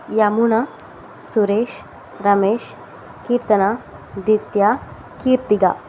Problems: constant background noise